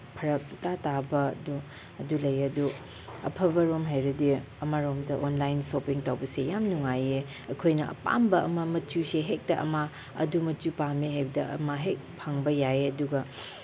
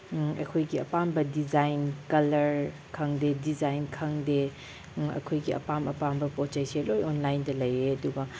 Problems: none marked